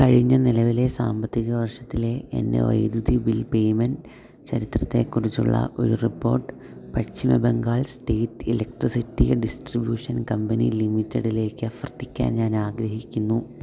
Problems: low volume